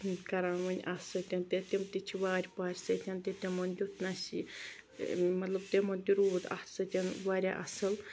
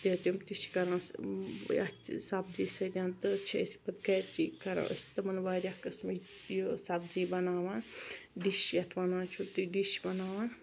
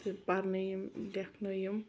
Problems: background sounds at intervals